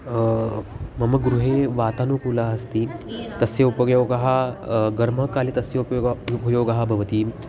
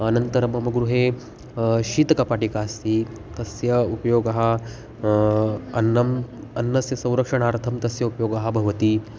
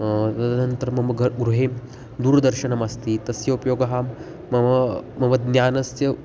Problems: constant background noise, background conversations at intervals